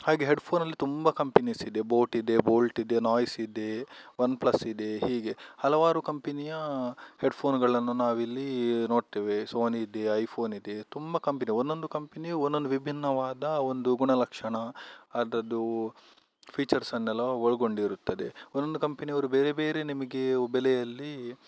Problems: none marked